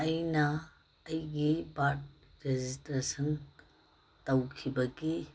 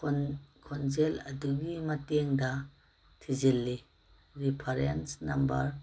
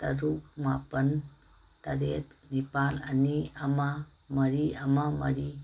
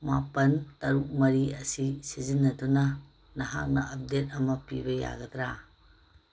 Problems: background sounds at intervals